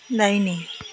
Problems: constant background noise